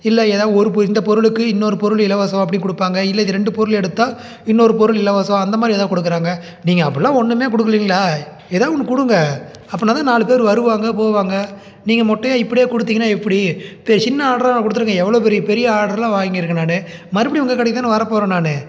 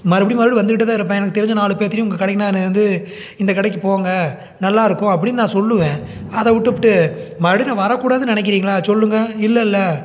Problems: none marked